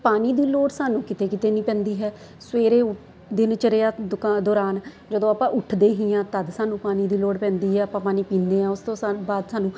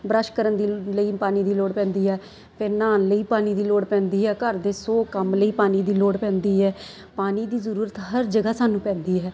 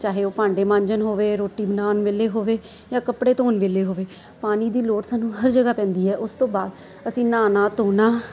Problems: constant background noise